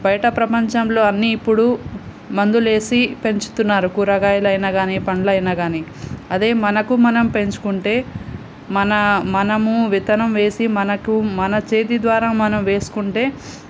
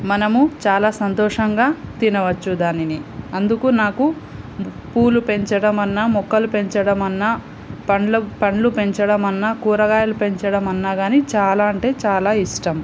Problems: constant background noise